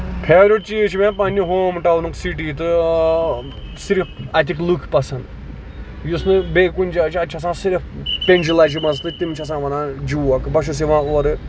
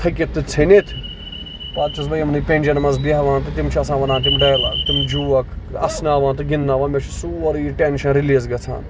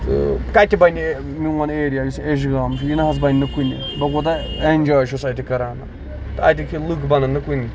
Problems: constant background noise, background conversations at intervals